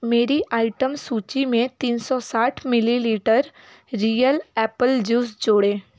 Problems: constant background noise, background conversations at intervals